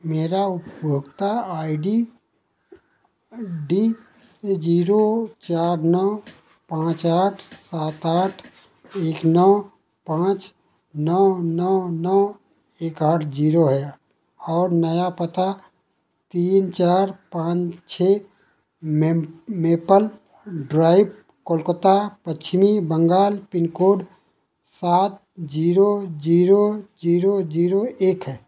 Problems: none marked